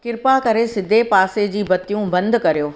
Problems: none marked